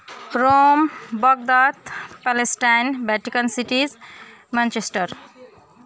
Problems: continuous background conversations